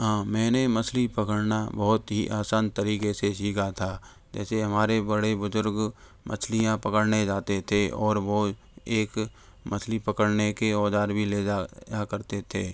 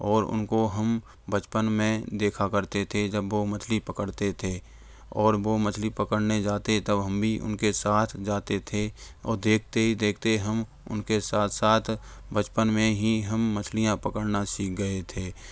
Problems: background sounds at intervals